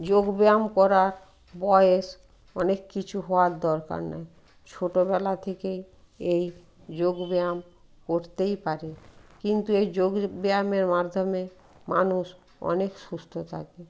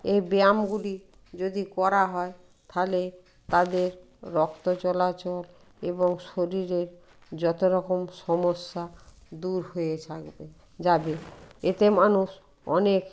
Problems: background sounds at intervals